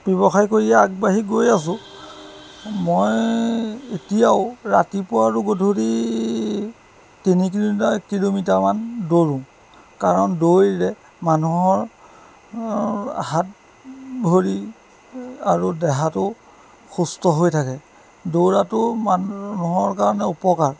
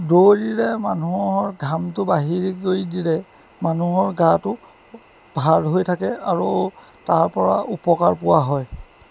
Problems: background sounds at intervals